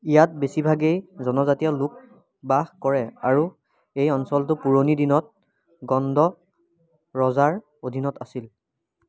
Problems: none marked